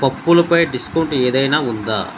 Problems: none marked